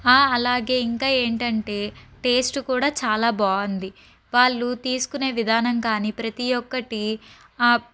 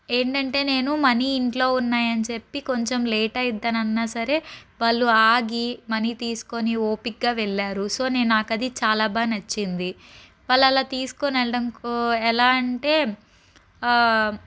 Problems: none marked